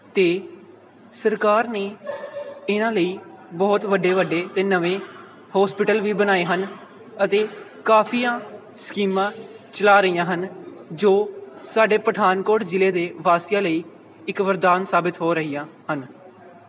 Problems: none marked